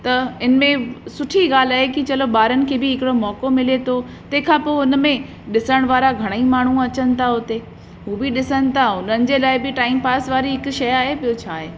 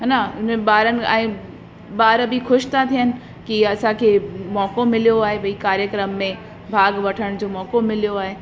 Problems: constant background noise, echo